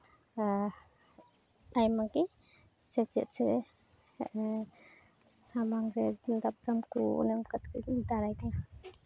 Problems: constant background noise